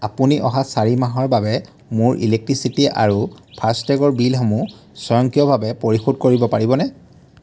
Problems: background sounds at intervals